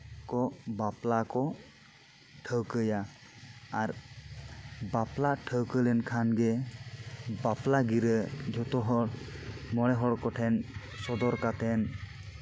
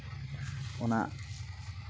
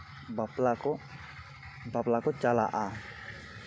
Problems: background sounds at intervals